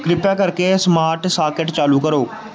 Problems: background sounds at intervals